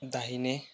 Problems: none marked